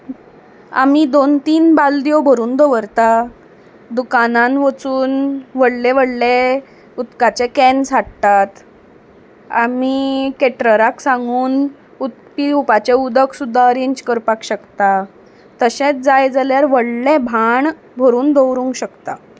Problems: background sounds at intervals